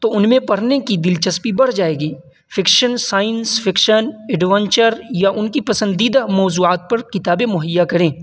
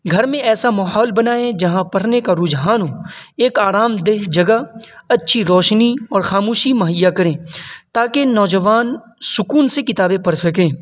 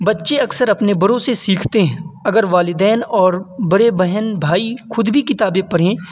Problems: constant background noise